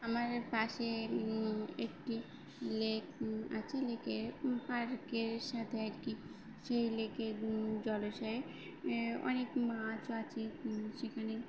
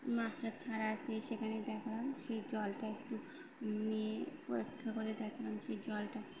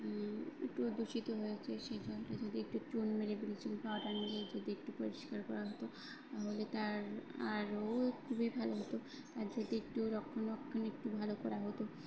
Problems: none marked